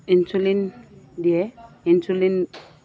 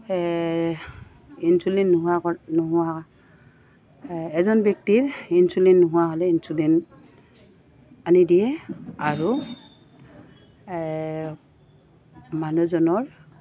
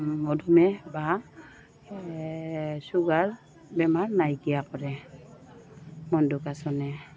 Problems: constant background noise, background conversations at intervals